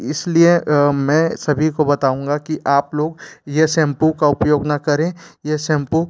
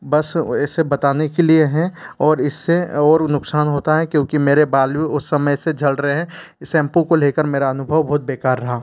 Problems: background sounds at intervals